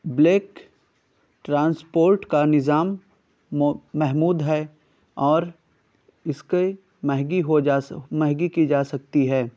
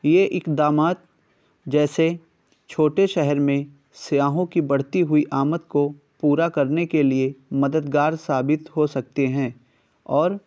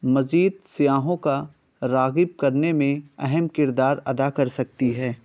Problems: none marked